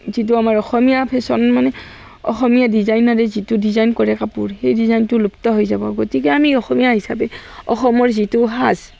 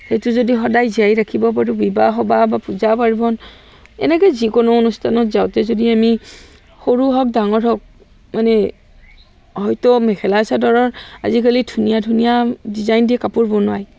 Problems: constant background noise